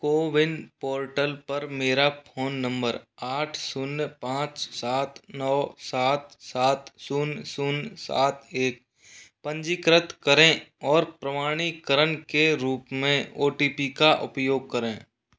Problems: none marked